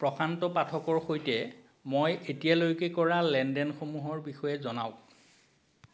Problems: constant background noise